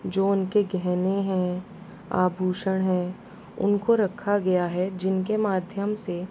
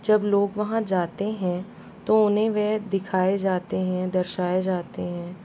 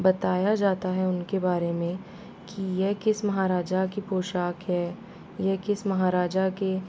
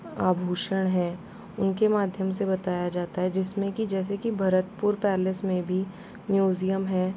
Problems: constant background noise